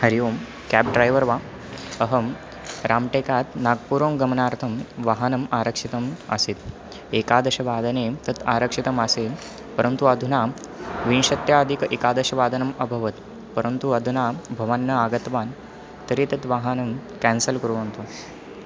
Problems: constant background noise